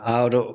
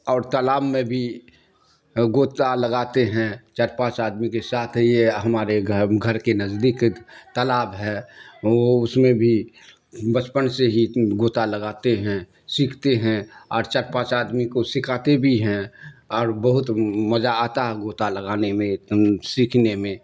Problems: none marked